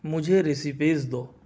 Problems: none marked